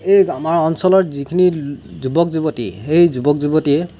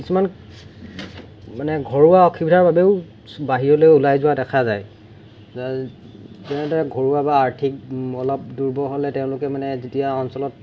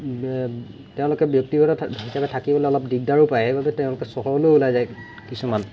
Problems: background sounds at intervals